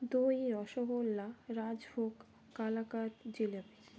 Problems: none marked